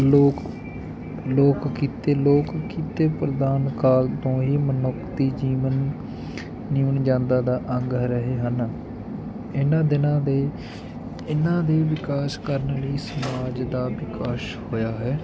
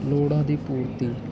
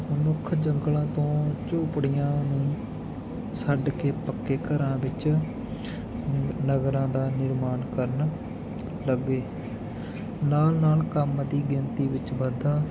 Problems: none marked